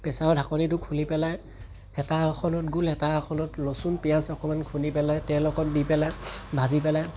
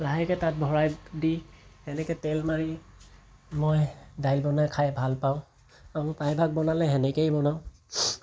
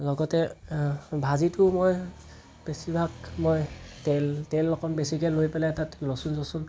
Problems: background sounds at intervals